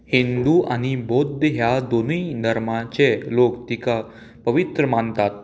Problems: constant background noise